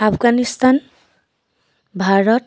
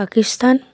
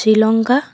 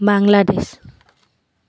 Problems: none marked